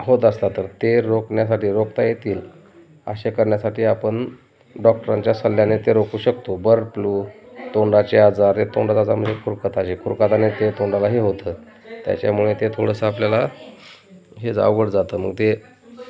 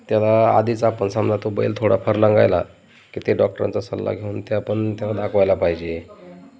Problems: constant background noise, continuous background conversations